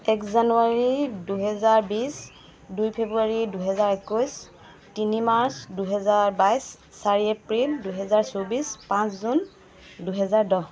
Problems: none marked